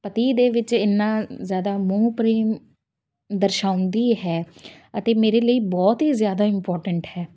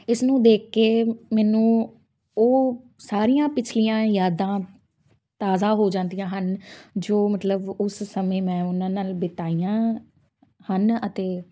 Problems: background sounds at intervals